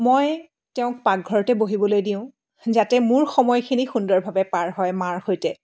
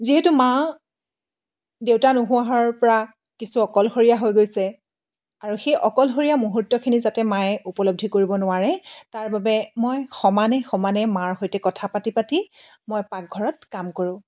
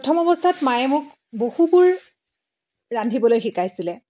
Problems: none marked